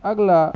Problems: constant background noise